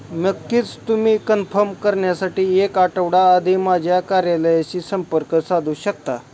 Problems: none marked